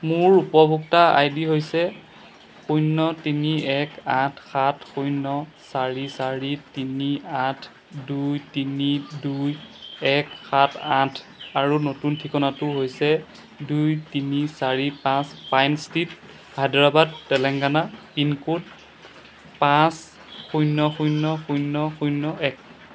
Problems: none marked